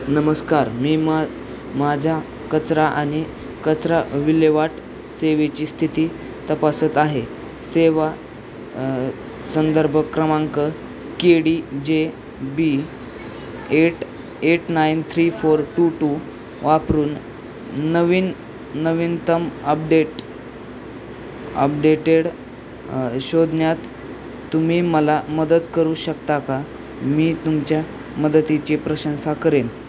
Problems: constant background noise